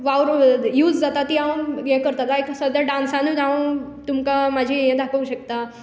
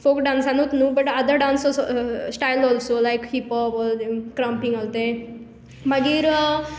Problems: none marked